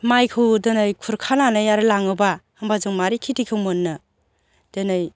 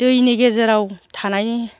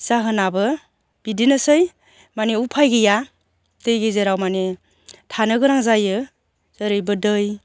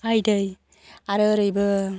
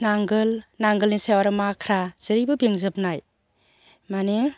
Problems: constant background noise